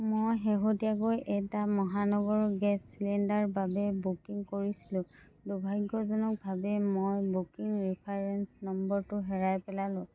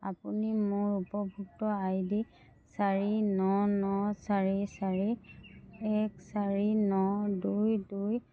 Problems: none marked